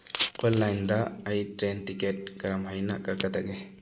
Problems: background sounds at intervals